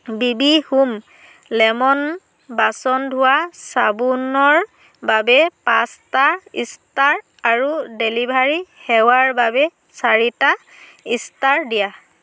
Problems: constant background noise